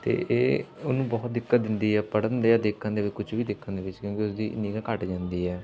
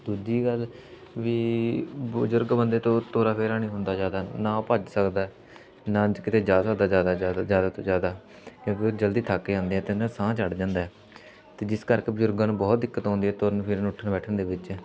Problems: constant background noise